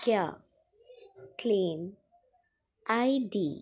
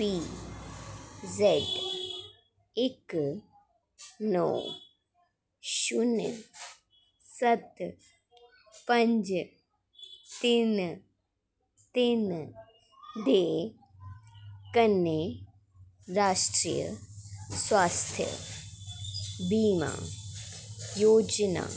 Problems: background sounds at intervals